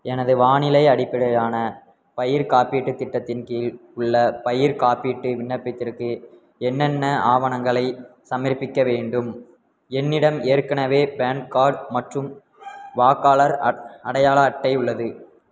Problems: background sounds at intervals